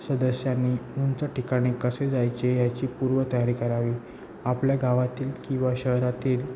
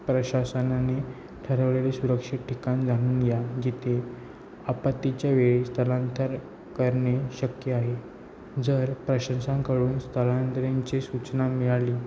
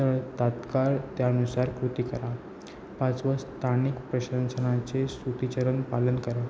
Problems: constant background noise